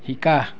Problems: background sounds at intervals, background conversations at intervals